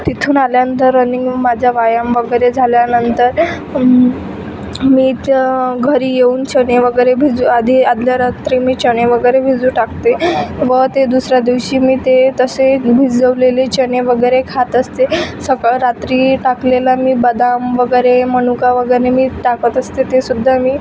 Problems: constant background noise, background conversations at intervals